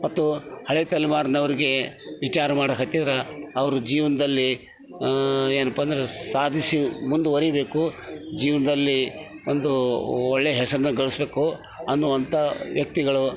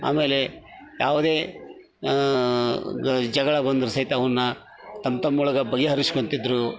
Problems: background sounds at intervals